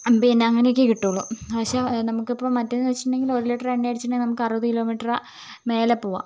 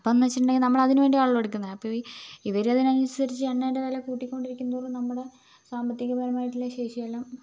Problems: constant background noise